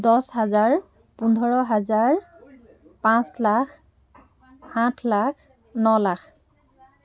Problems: background sounds at intervals, continuous background conversations